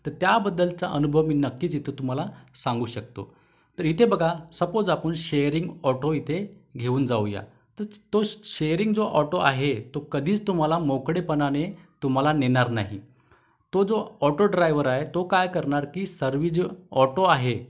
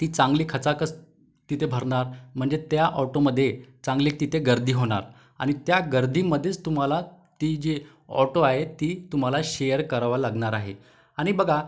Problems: background sounds at intervals